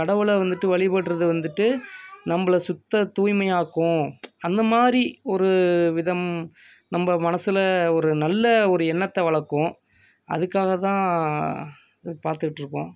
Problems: background conversations at intervals